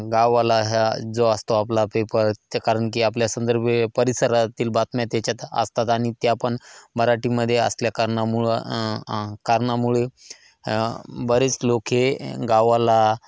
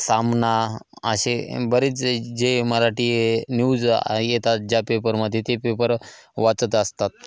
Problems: constant background noise, echo